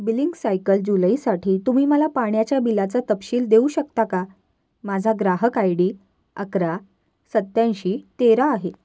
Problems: none marked